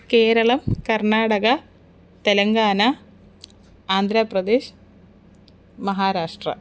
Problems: none marked